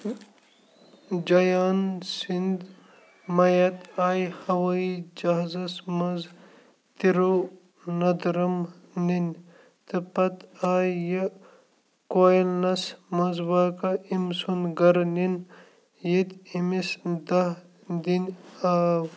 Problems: constant background noise